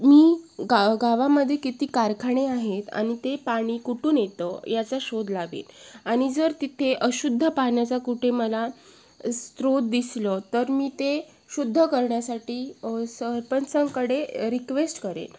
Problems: none marked